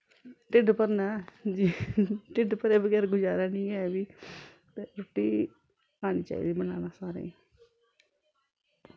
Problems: constant background noise